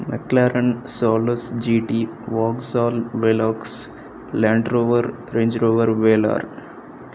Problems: none marked